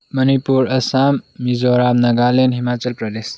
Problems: background sounds at intervals